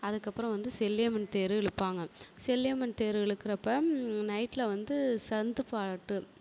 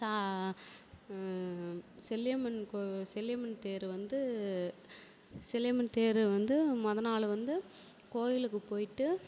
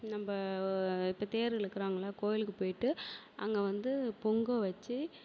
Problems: none marked